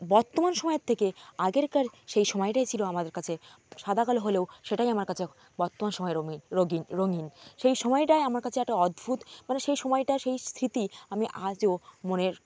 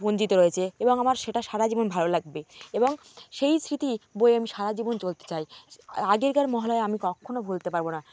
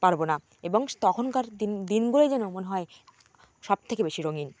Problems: constant background noise